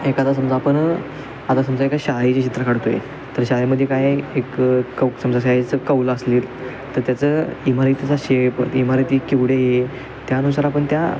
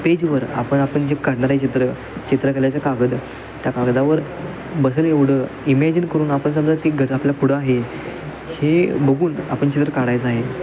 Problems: constant background noise, background conversations at intervals